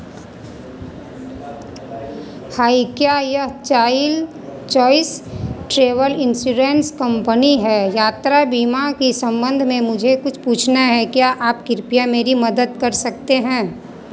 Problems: constant background noise, continuous background conversations